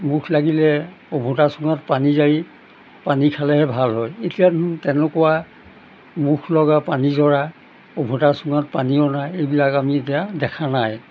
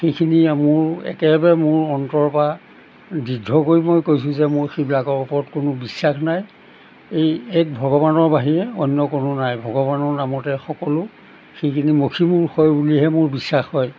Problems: none marked